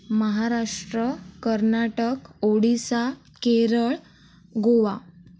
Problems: background sounds at intervals